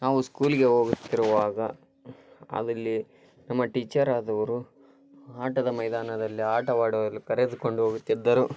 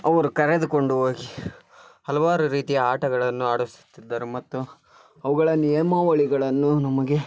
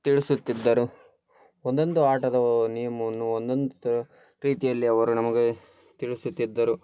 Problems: constant background noise